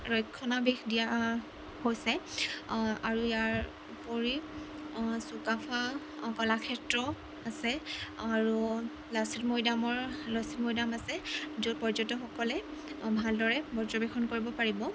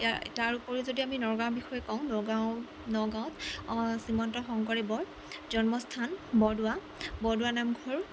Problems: constant background noise